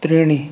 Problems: none marked